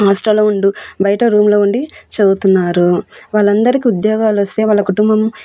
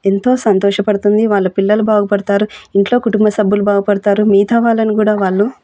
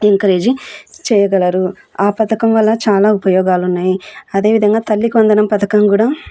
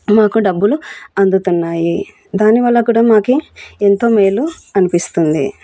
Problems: none marked